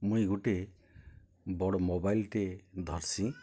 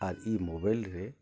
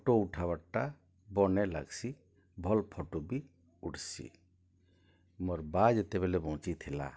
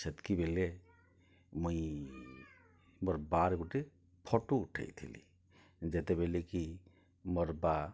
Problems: low volume